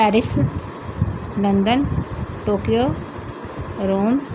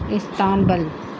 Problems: background sounds at intervals